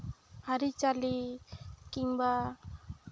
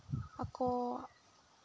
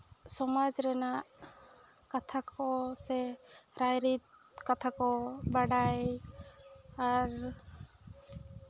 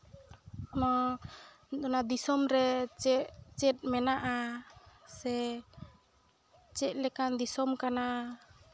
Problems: background sounds at intervals